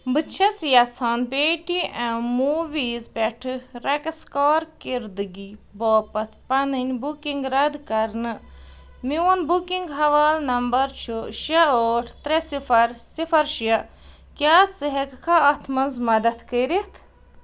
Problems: none marked